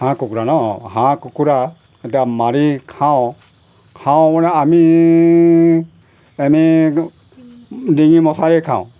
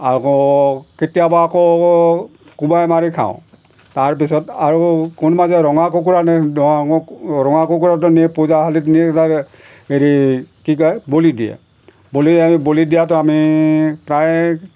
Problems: background sounds at intervals